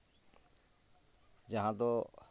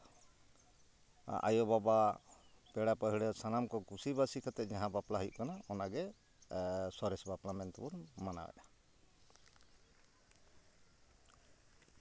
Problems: none marked